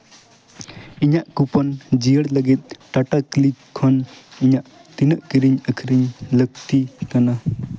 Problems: constant background noise, background conversations at intervals